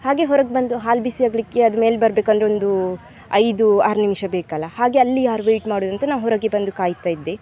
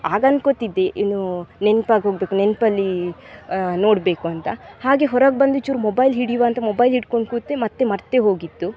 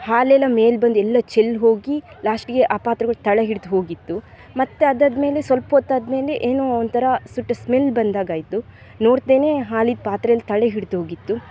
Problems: background sounds at intervals